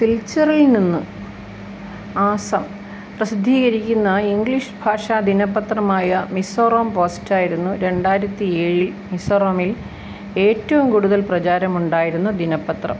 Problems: none marked